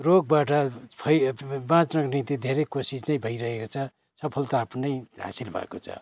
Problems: constant background noise, continuous background conversations